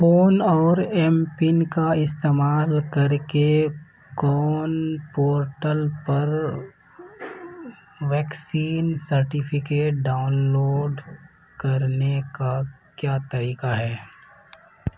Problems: constant background noise